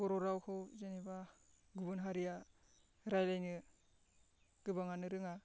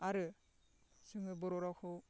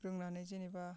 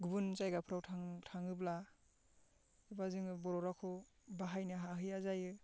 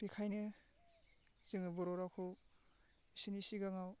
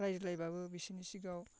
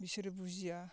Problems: constant background noise